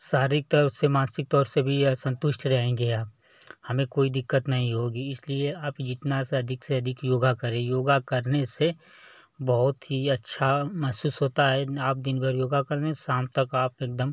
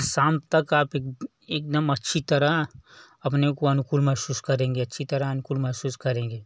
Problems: none marked